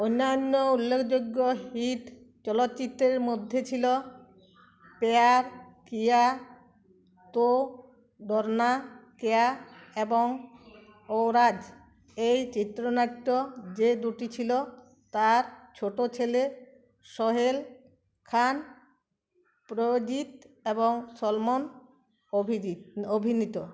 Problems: background sounds at intervals